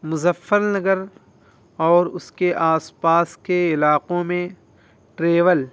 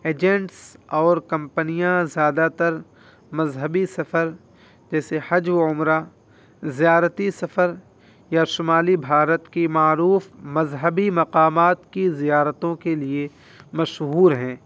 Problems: constant background noise